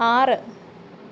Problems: none marked